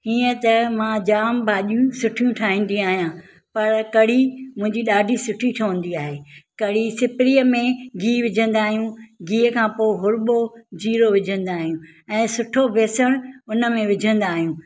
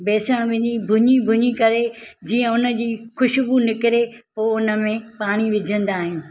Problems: none marked